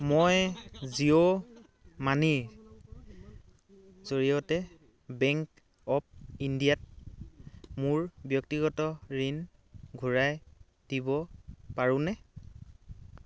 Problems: background conversations at intervals